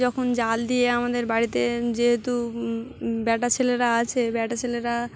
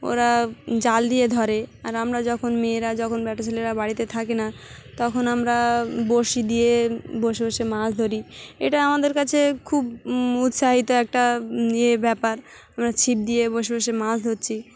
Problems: background sounds at intervals, continuous background conversations